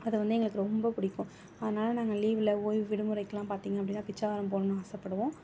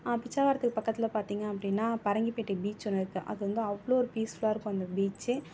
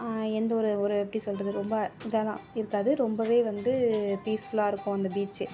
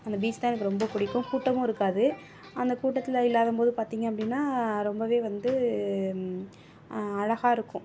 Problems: background sounds at intervals